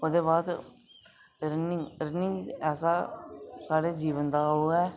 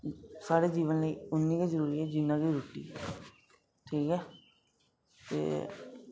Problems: none marked